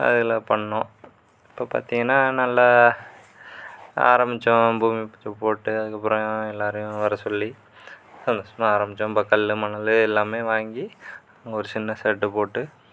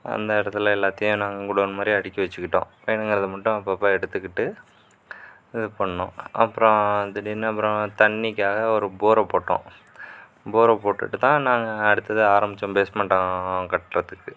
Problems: constant background noise